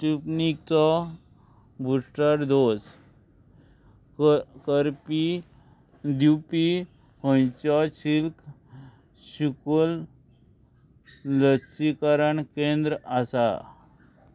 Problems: constant background noise